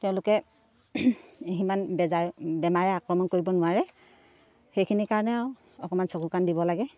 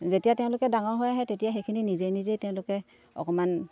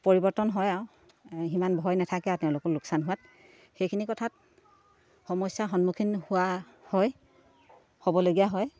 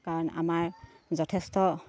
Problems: none marked